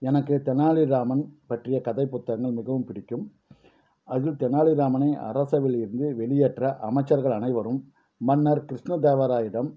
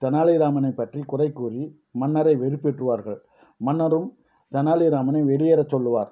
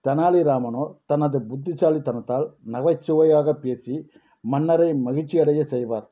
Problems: none marked